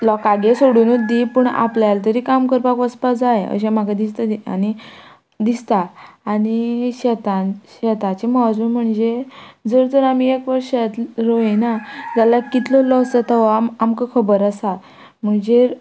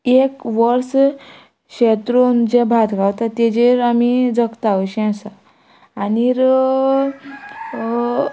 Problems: background sounds at intervals